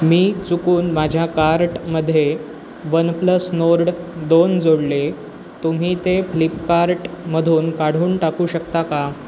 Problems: constant background noise